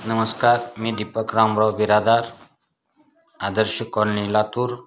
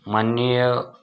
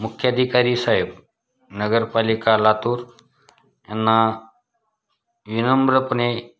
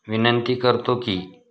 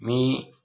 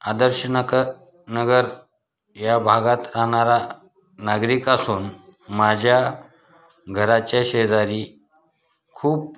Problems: constant background noise, background conversations at intervals